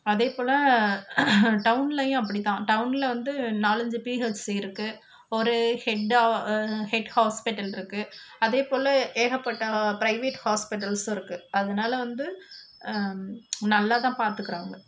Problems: constant background noise